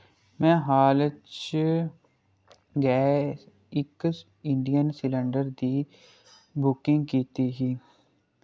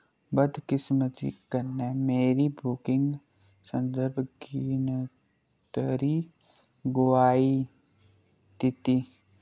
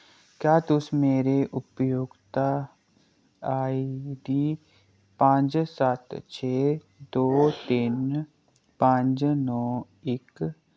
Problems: low volume